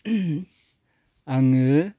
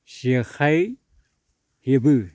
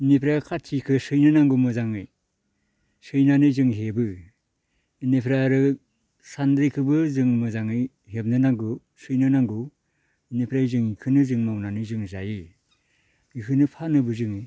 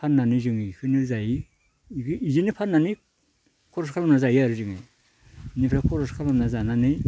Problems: none marked